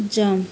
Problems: constant background noise